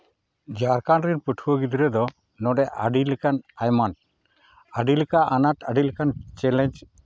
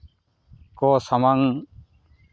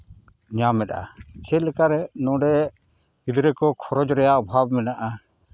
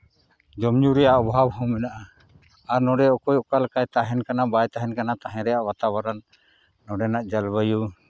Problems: none marked